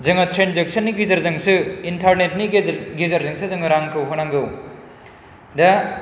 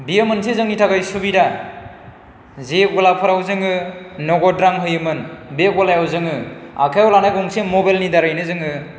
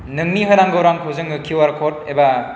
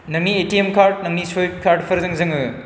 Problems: none marked